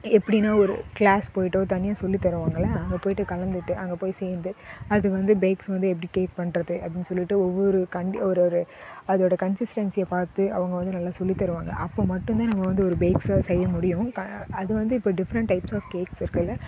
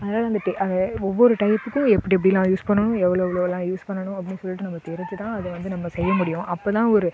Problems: constant background noise, background conversations at intervals